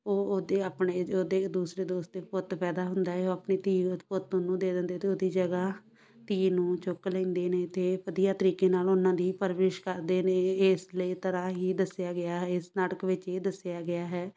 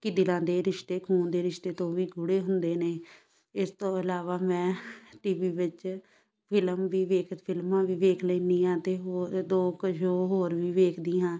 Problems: background sounds at intervals, background conversations at intervals